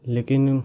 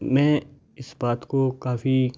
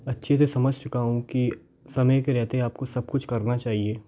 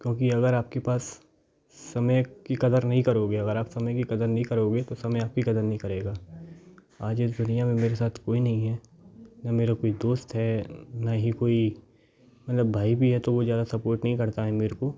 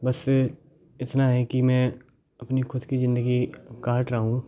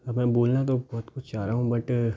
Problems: constant background noise, background conversations at intervals